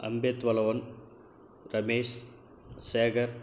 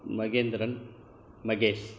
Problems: low volume